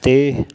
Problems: constant background noise